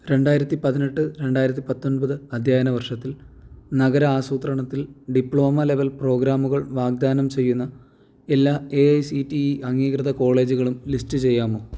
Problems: none marked